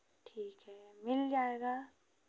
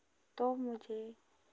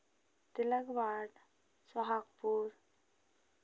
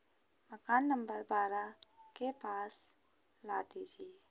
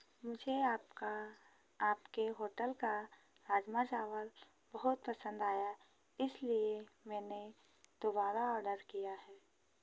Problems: constant background noise